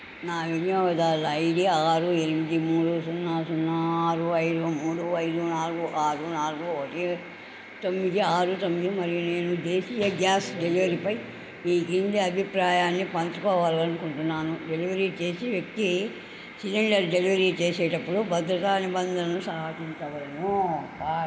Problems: constant background noise